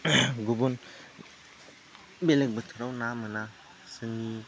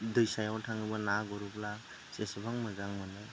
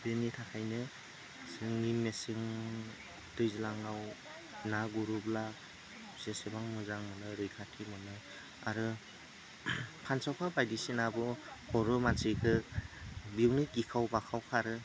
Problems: constant background noise